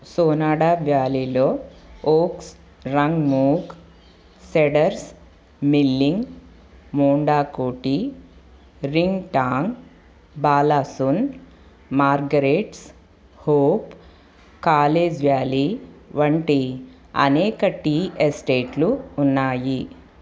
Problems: constant background noise